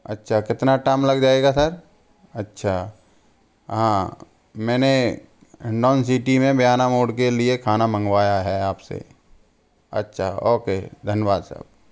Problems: constant background noise